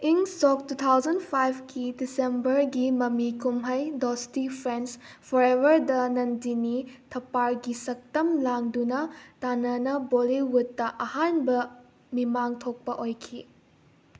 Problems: none marked